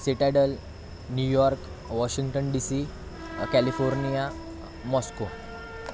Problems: constant background noise